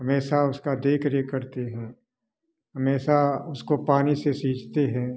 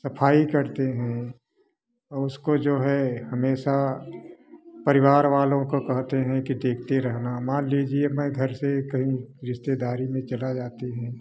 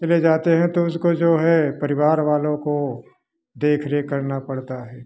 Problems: background sounds at intervals, background conversations at intervals